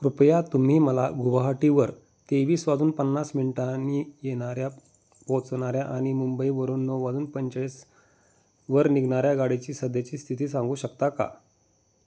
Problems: constant background noise